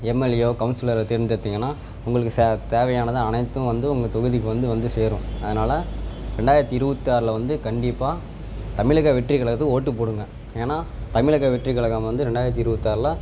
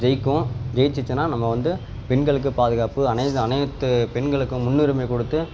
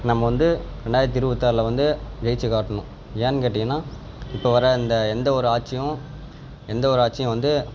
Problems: background sounds at intervals